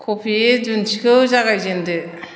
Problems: constant background noise